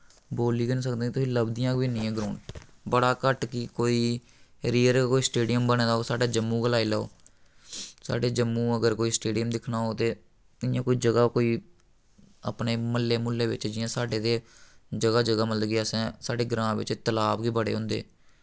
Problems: none marked